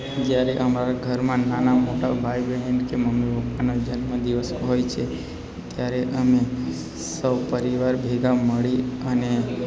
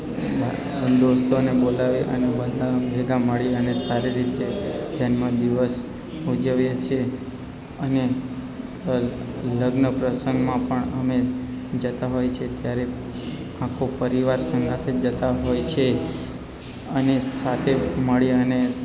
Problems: constant background noise